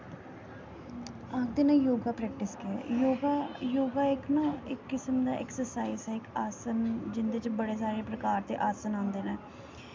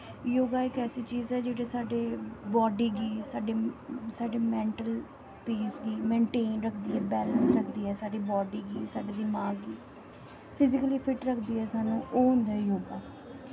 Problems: constant background noise